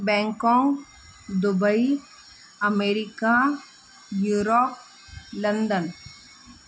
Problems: constant background noise, echo